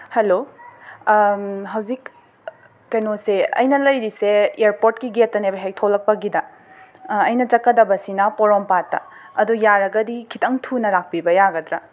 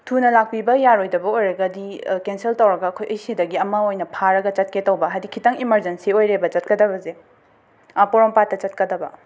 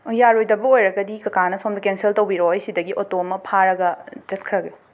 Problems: constant background noise